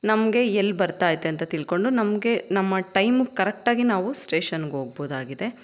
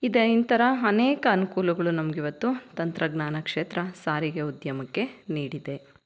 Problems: none marked